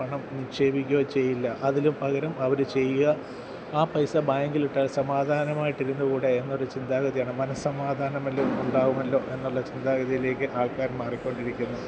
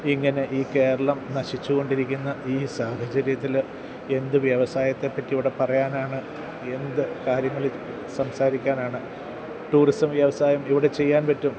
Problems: none marked